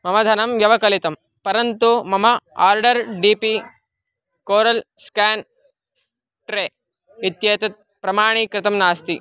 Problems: background sounds at intervals